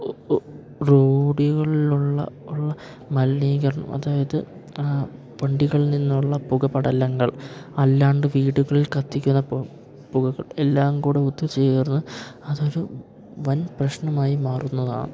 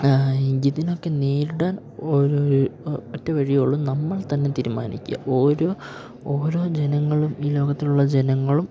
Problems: none marked